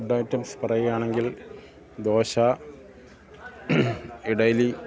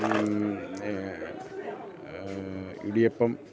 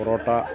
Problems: constant background noise